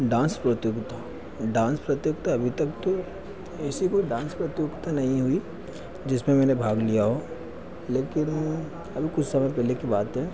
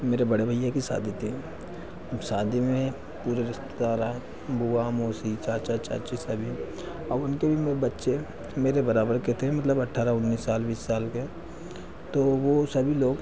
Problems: constant background noise